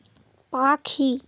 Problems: constant background noise